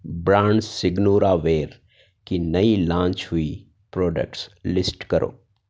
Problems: none marked